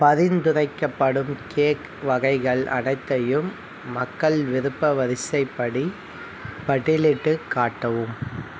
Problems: none marked